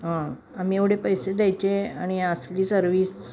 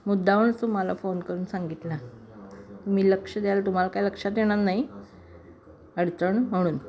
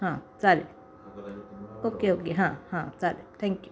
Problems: none marked